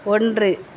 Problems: constant background noise